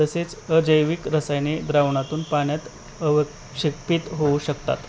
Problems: constant background noise